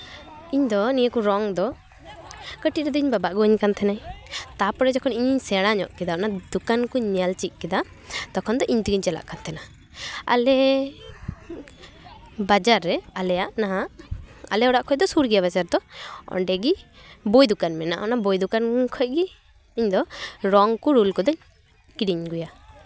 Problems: background sounds at intervals